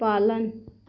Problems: constant background noise